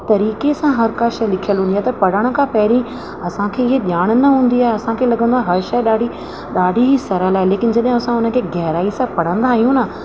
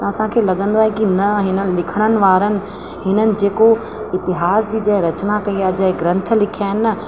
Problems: constant background noise, echo